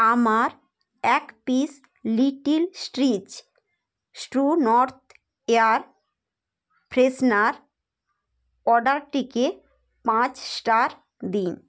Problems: background sounds at intervals